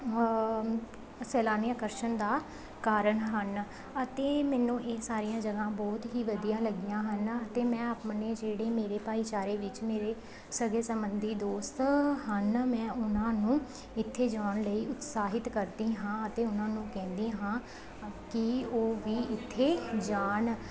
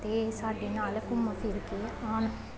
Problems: background conversations at intervals